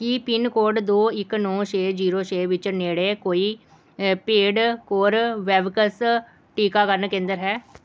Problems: background sounds at intervals